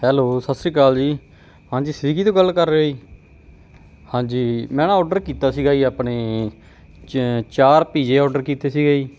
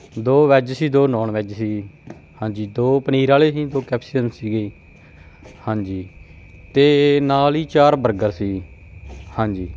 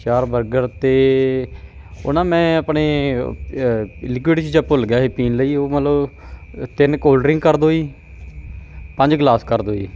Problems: constant background noise